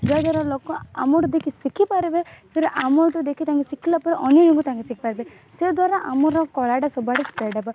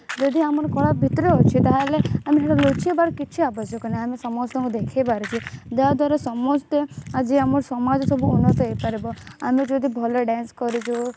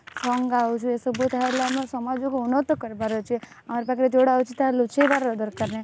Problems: constant background noise